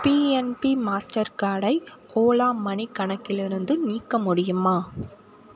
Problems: none marked